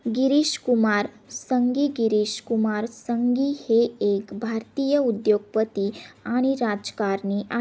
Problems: none marked